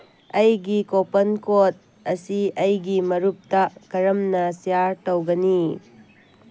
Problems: background sounds at intervals